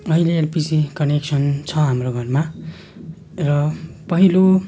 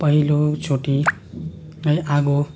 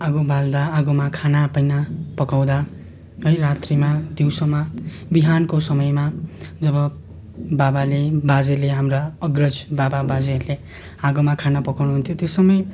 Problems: constant background noise